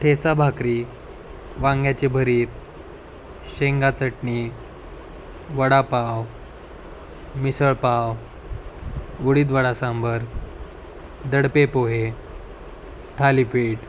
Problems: none marked